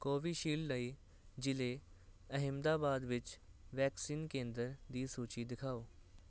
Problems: constant background noise